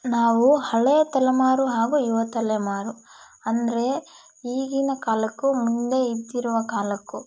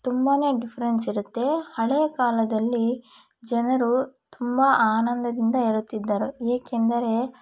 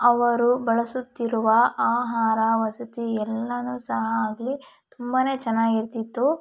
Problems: background sounds at intervals